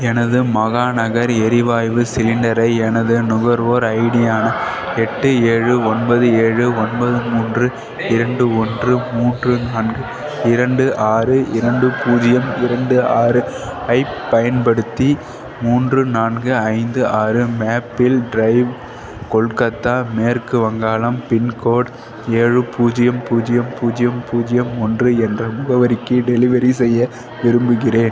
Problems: continuous background conversations